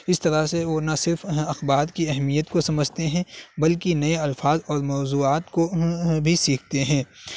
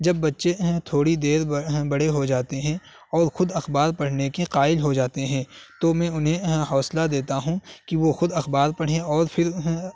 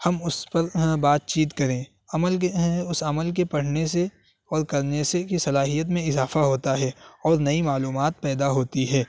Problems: constant background noise